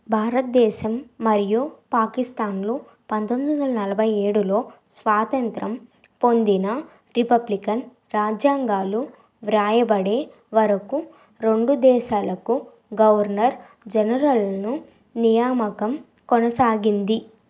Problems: constant background noise